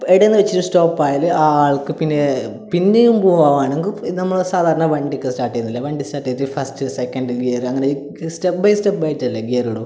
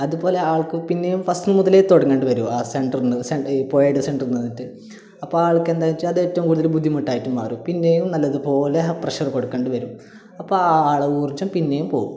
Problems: none marked